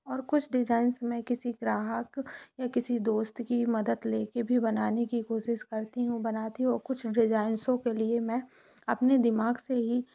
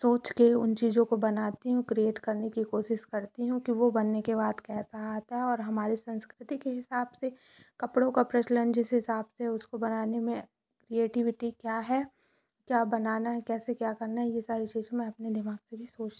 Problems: none marked